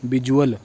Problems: none marked